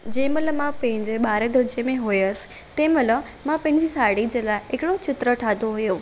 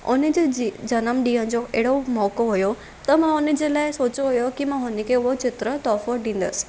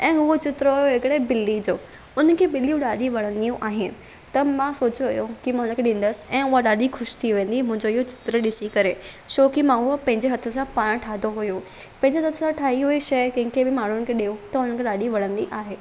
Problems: constant background noise